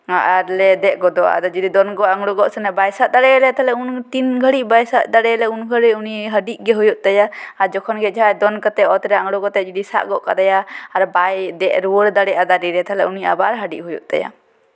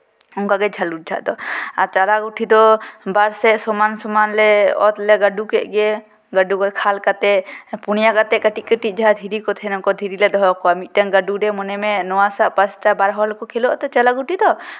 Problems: none marked